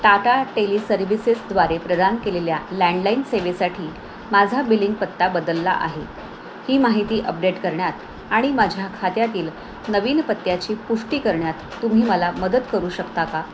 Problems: none marked